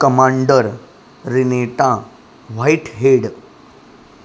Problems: constant background noise